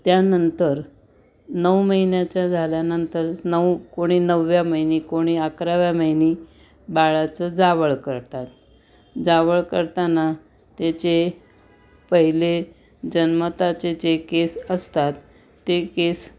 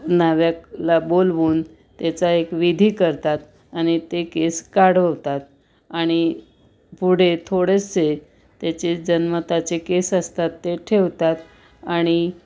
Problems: none marked